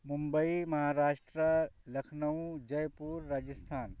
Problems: none marked